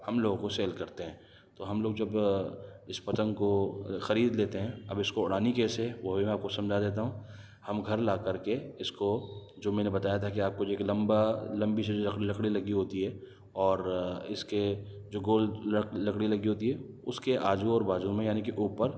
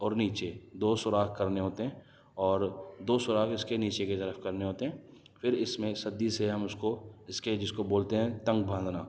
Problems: none marked